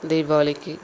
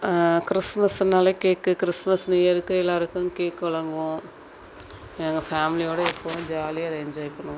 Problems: constant background noise